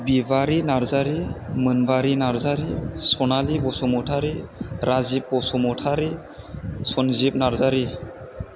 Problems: constant background noise